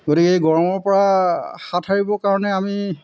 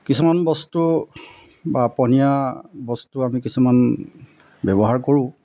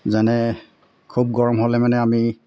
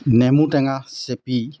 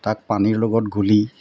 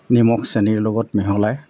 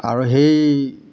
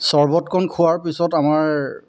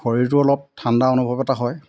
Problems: constant background noise